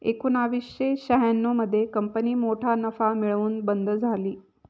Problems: none marked